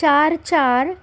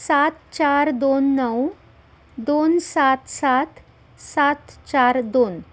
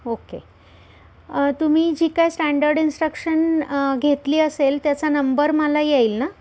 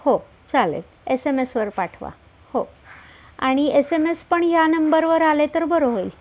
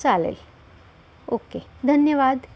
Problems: constant background noise, background conversations at intervals